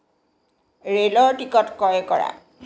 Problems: constant background noise